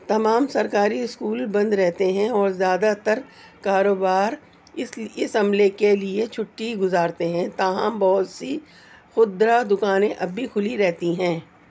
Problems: constant background noise